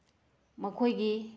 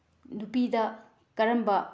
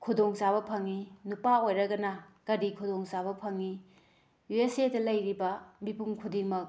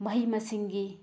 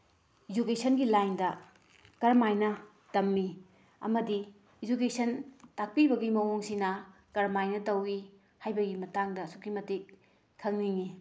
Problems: none marked